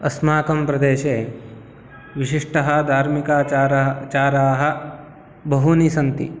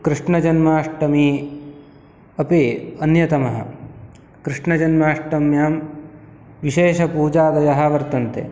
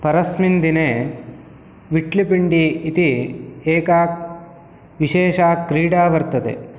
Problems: none marked